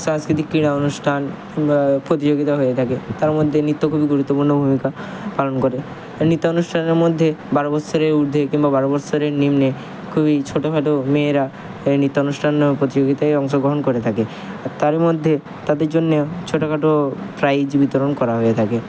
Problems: constant background noise